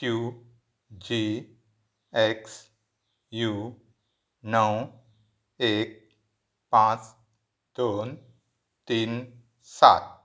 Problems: none marked